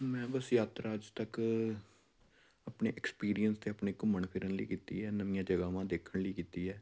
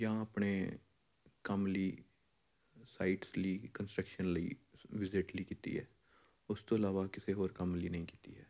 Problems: background sounds at intervals